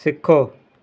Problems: constant background noise